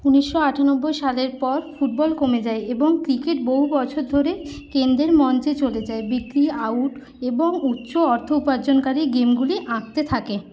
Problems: constant background noise